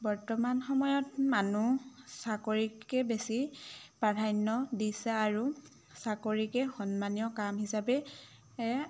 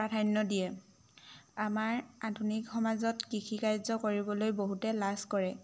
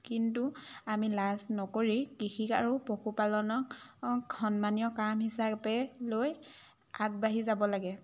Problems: none marked